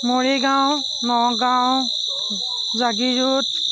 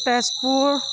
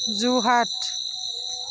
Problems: constant background noise